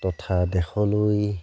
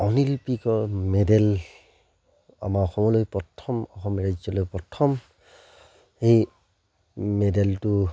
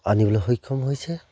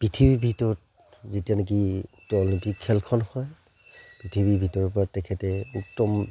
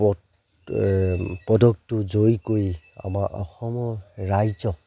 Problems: none marked